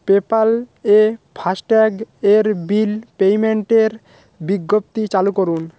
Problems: background sounds at intervals